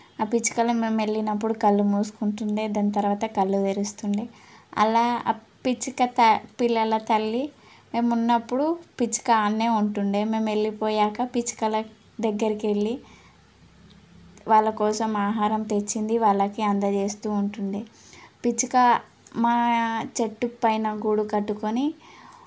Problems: none marked